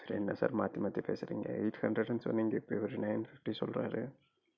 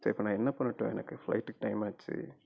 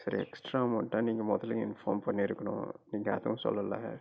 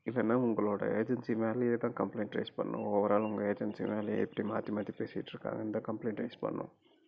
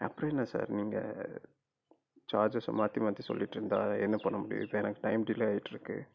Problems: low volume